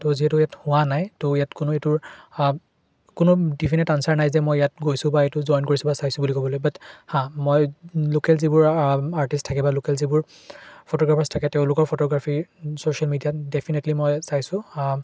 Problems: constant background noise